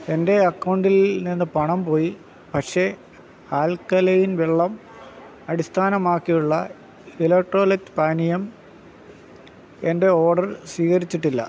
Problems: background sounds at intervals